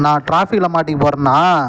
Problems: background sounds at intervals